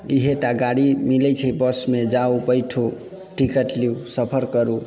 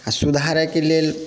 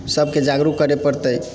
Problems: background sounds at intervals